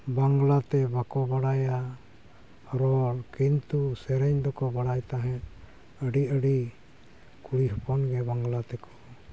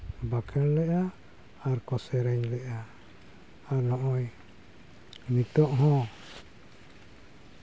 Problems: none marked